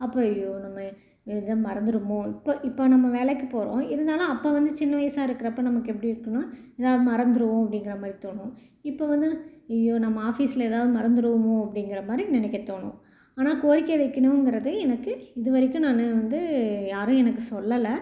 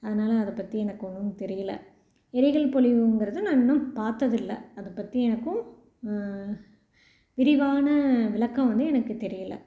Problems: none marked